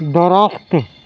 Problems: none marked